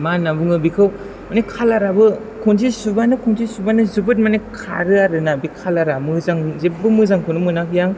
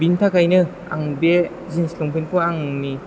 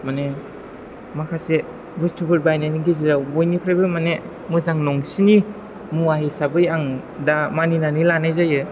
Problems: background sounds at intervals